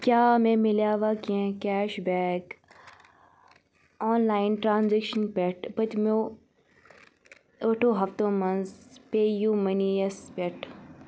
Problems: background sounds at intervals